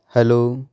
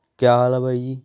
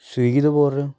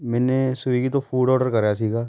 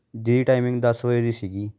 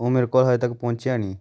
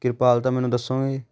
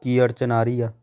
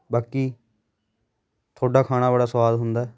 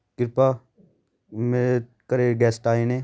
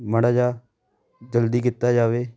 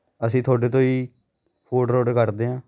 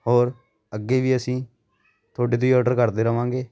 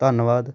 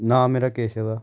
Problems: none marked